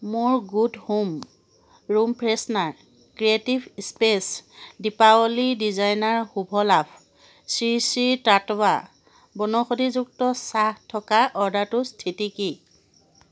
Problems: constant background noise